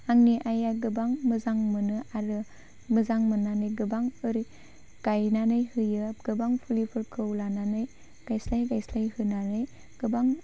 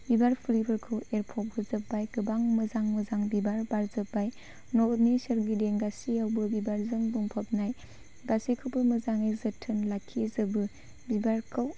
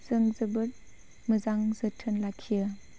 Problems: none marked